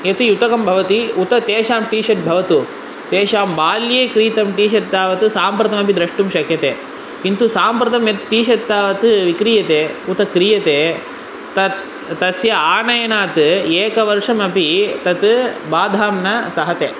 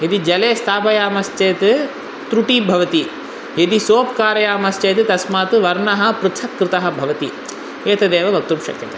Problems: constant background noise